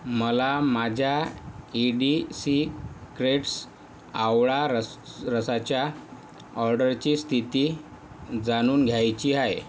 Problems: none marked